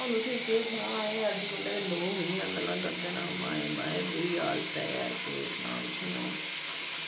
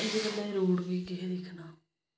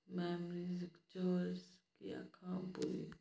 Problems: background sounds at intervals